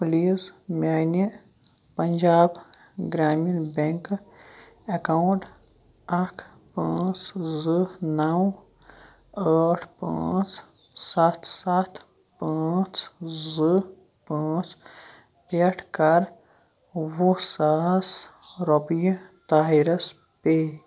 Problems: background sounds at intervals, background conversations at intervals